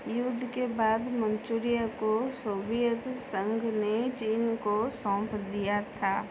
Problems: none marked